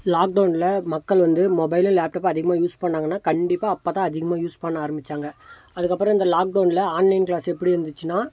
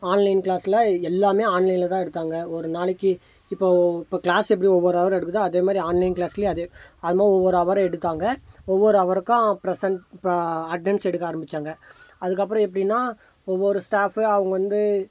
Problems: constant background noise